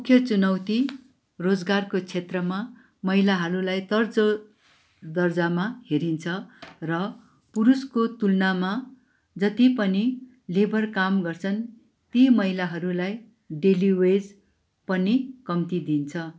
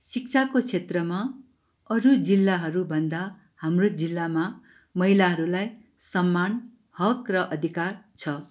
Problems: background sounds at intervals